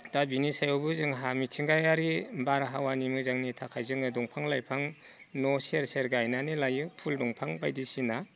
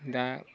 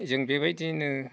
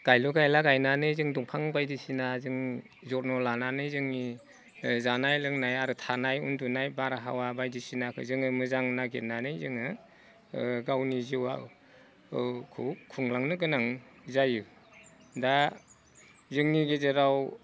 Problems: none marked